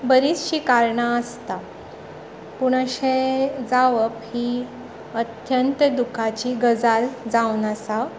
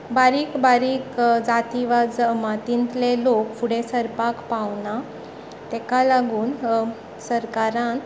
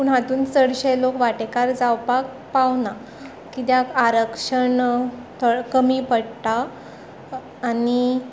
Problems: background conversations at intervals